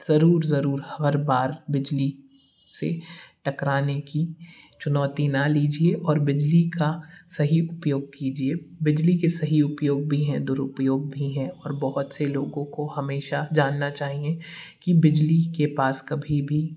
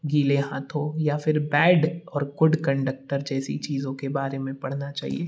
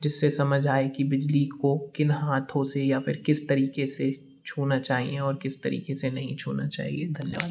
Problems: none marked